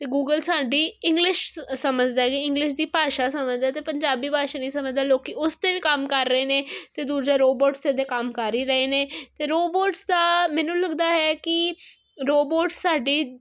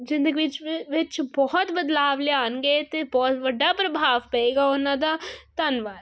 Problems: none marked